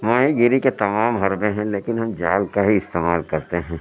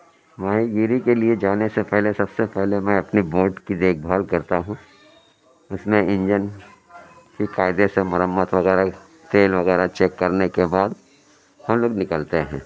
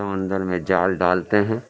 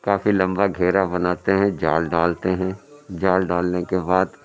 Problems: constant background noise, low volume